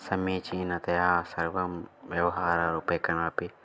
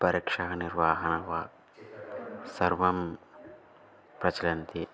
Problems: none marked